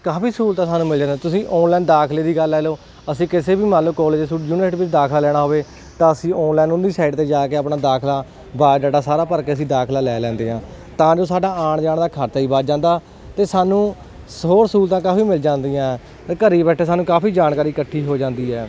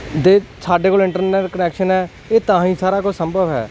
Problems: none marked